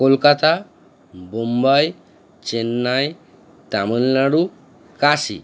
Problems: constant background noise